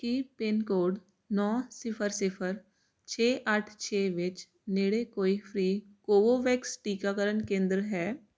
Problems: constant background noise